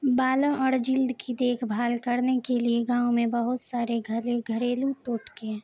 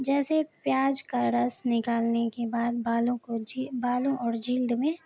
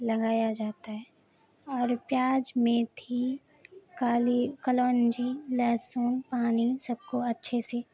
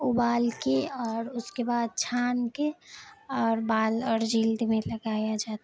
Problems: constant background noise